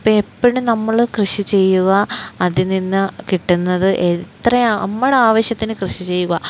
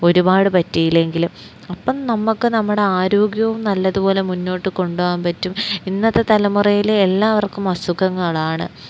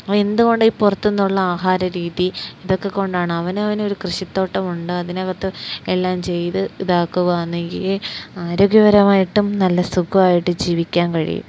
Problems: none marked